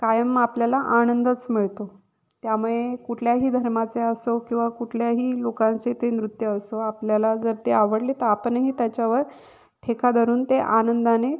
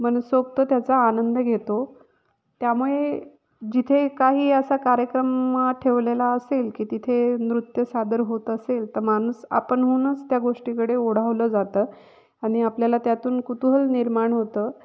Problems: background sounds at intervals, echo